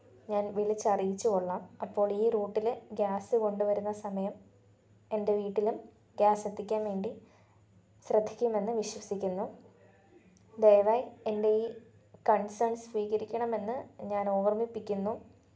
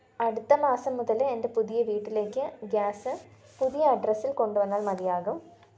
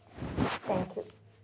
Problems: low volume